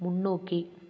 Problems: none marked